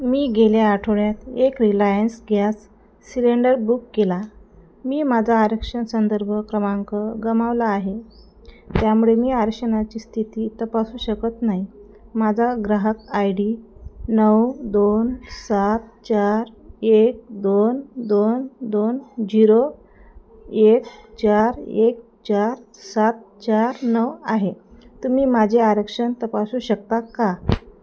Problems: constant background noise